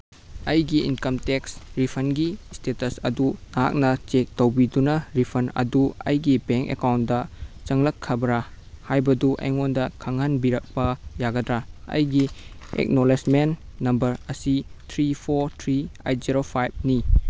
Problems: background sounds at intervals